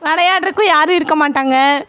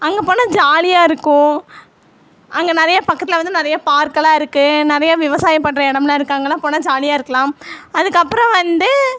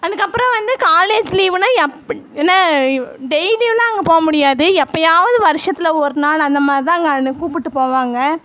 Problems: background conversations at intervals